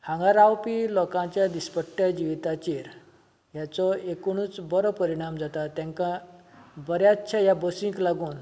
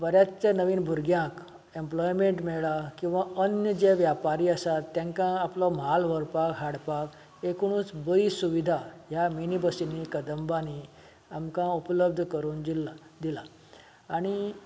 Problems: none marked